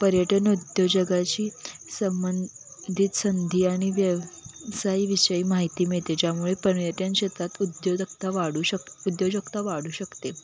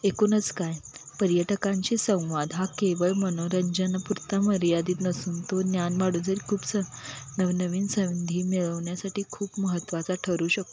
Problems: none marked